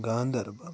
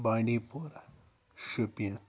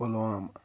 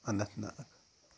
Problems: background sounds at intervals